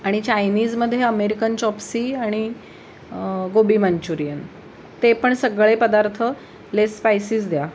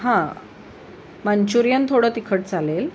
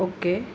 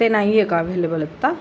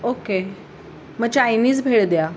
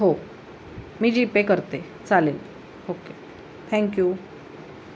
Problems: none marked